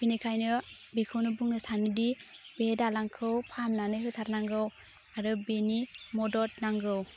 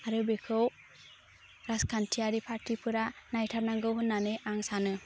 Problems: constant background noise